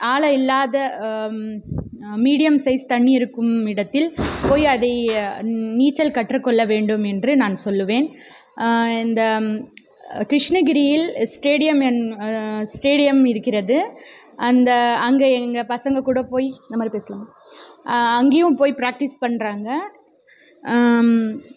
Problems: background sounds at intervals